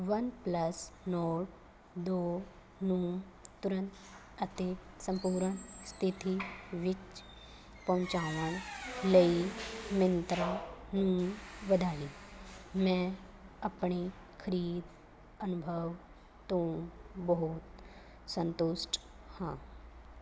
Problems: constant background noise